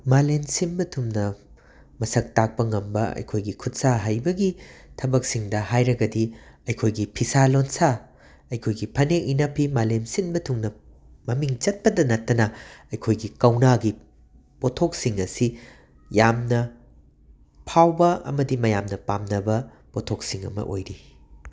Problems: none marked